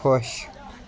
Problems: constant background noise